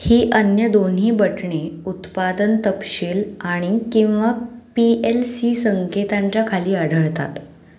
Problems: background sounds at intervals